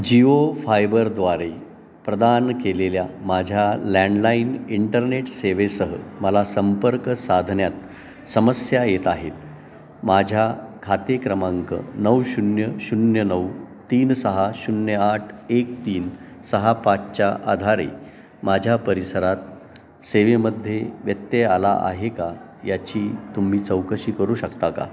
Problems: constant background noise, continuous background conversations